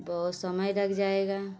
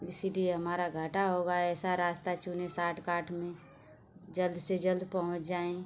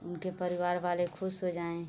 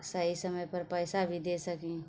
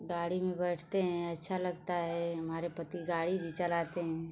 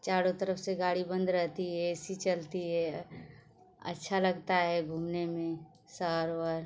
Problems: constant background noise